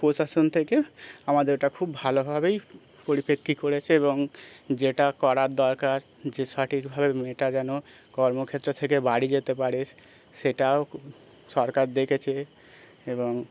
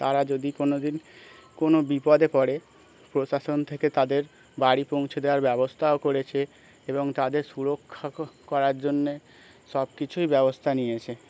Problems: background sounds at intervals, continuous background conversations